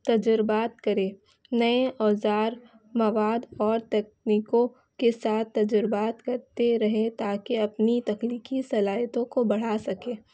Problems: constant background noise, low volume